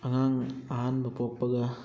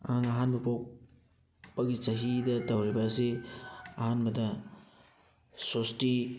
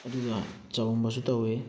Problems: background sounds at intervals